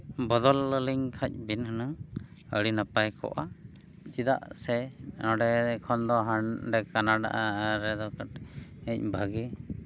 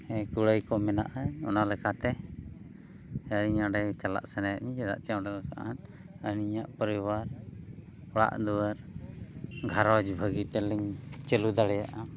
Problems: background sounds at intervals